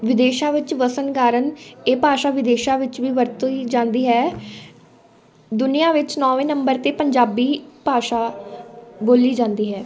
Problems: continuous background conversations